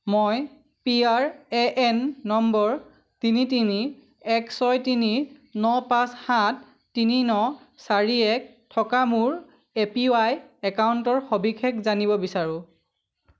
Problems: none marked